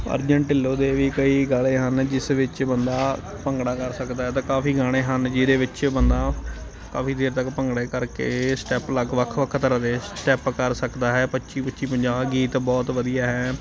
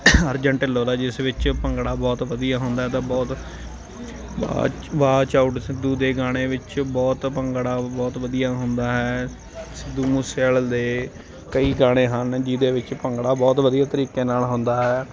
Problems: constant background noise, continuous background conversations